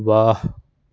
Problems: background sounds at intervals